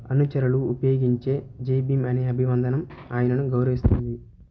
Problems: background sounds at intervals